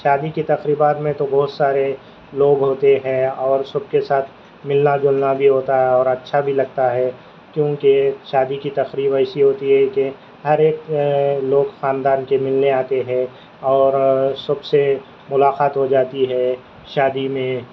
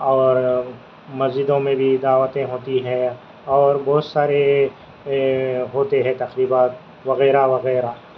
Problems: constant background noise, low volume